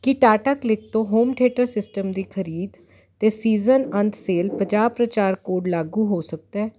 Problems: constant background noise